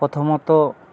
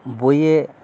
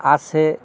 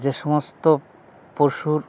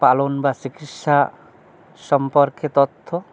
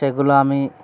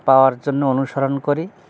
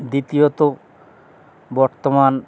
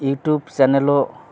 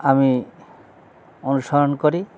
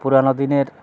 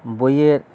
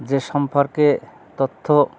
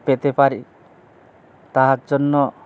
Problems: constant background noise, background conversations at intervals